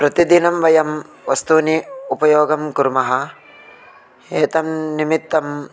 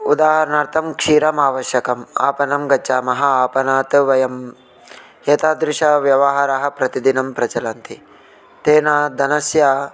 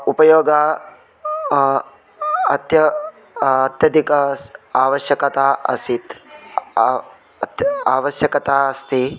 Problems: constant background noise, continuous background conversations